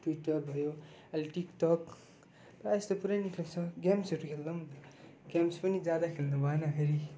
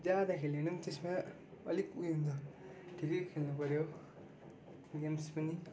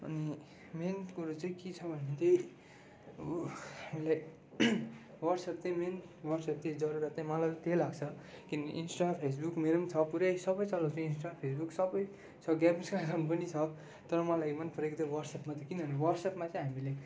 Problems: low volume